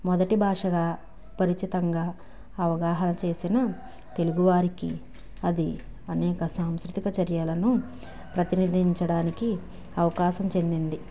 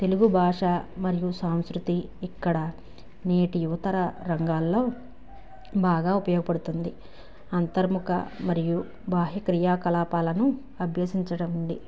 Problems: background sounds at intervals